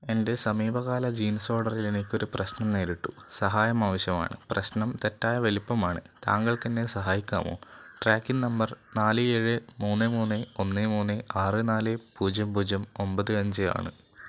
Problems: constant background noise